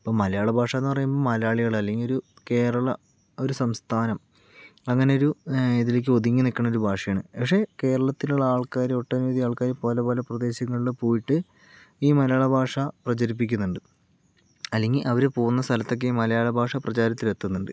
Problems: none marked